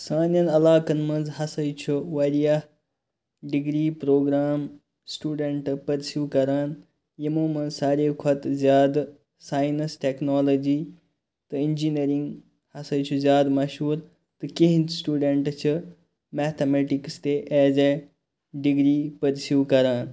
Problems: none marked